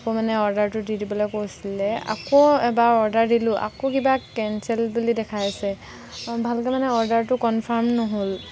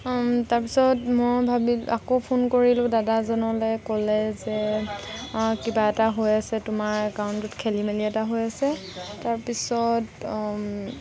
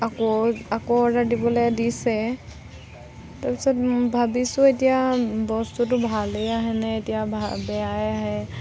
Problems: none marked